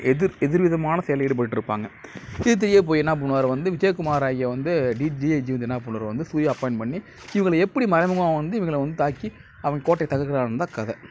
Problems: background sounds at intervals